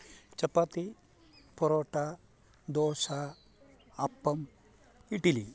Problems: low volume